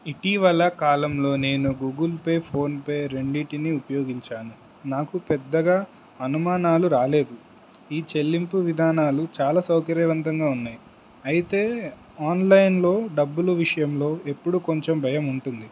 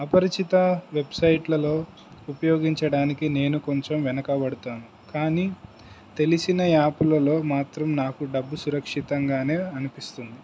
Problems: none marked